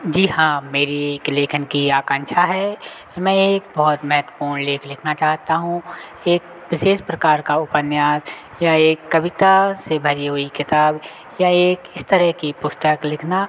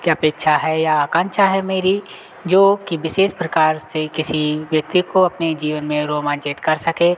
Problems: constant background noise, continuous background conversations